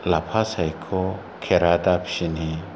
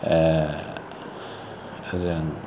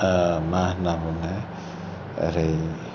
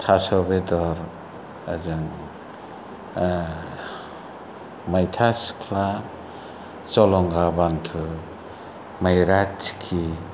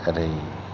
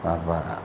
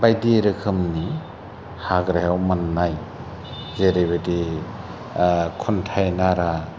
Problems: low volume